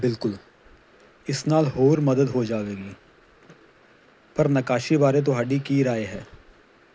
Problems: constant background noise